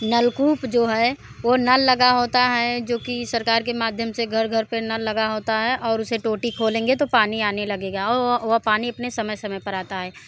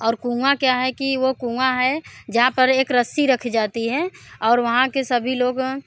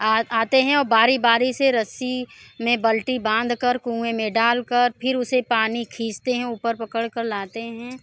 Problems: constant background noise